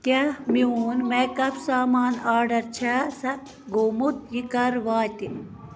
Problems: constant background noise